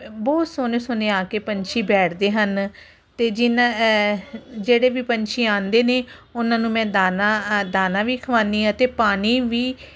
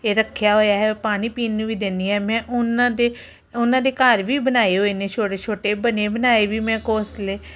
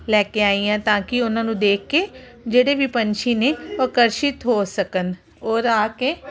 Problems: background conversations at intervals